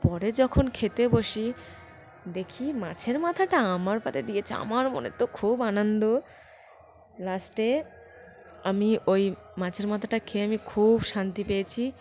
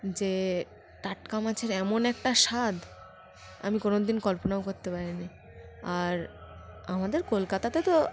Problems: constant background noise